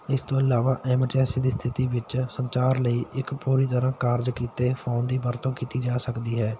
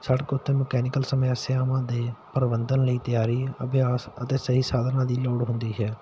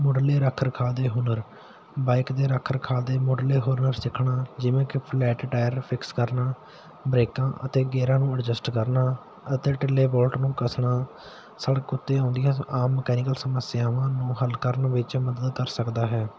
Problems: constant background noise